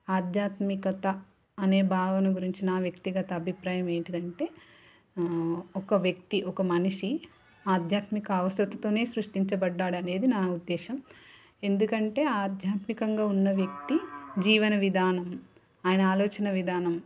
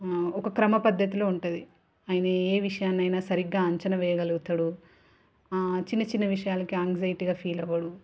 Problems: background conversations at intervals